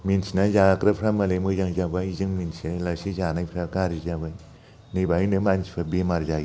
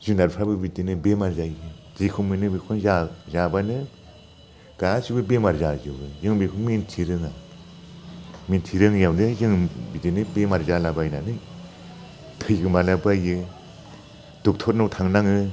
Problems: constant background noise